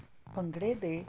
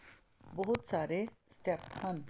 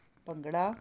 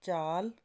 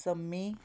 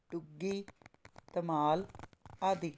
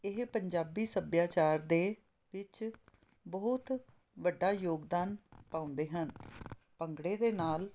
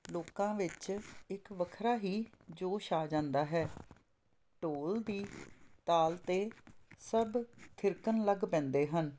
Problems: none marked